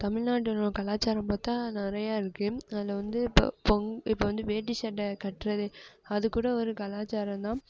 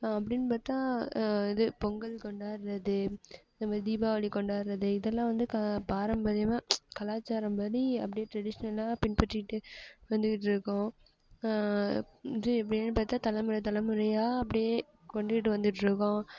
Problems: background sounds at intervals